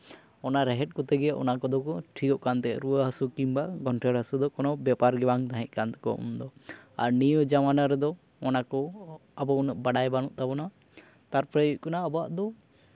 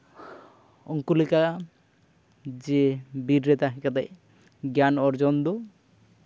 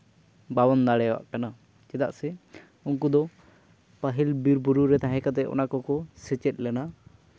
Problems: background sounds at intervals